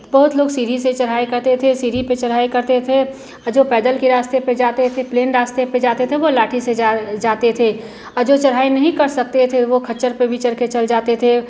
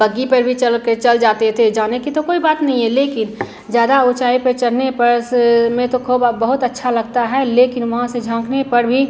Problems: constant background noise